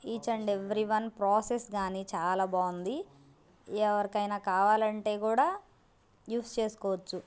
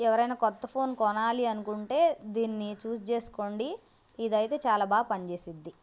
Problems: constant background noise